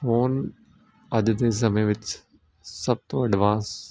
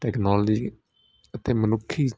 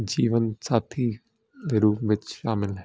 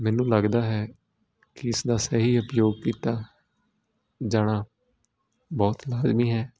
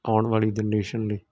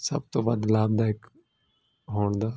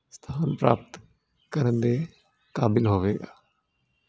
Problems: none marked